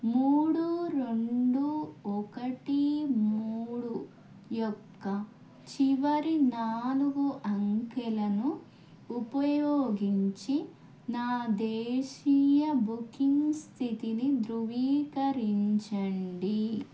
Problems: none marked